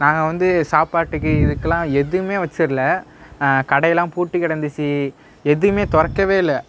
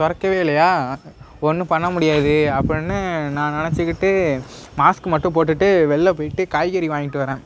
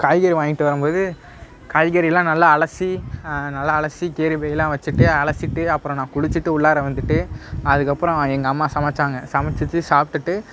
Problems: none marked